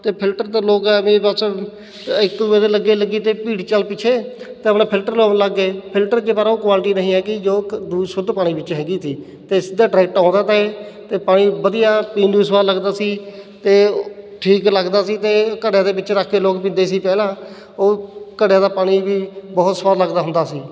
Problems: none marked